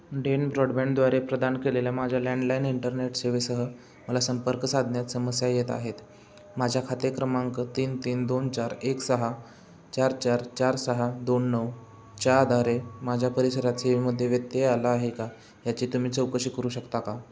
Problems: constant background noise, background conversations at intervals